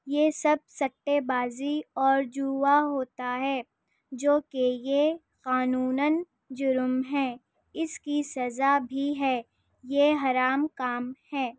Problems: none marked